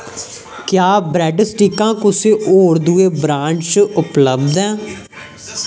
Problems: constant background noise